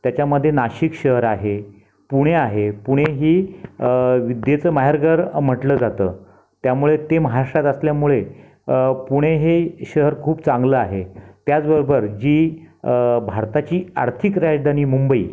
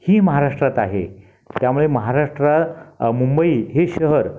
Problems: none marked